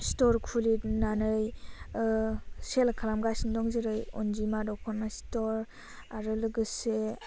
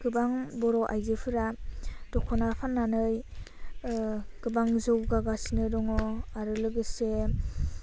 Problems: none marked